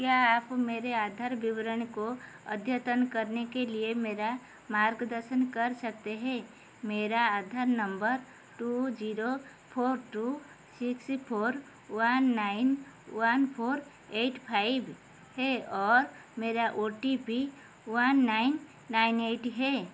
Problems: constant background noise